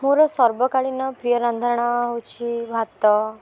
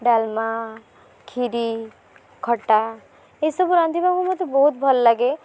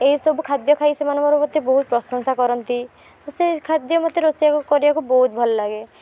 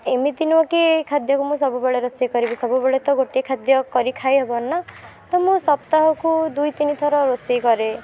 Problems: background sounds at intervals